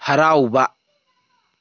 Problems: none marked